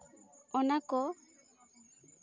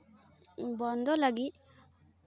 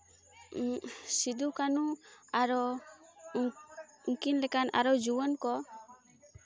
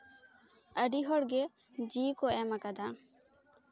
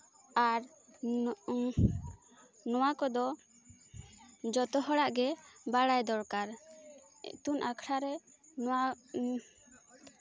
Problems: constant background noise, continuous background conversations